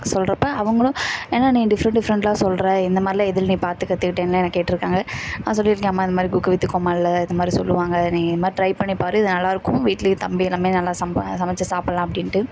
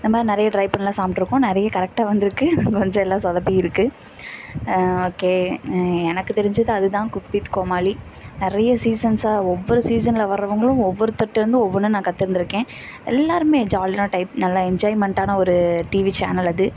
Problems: none marked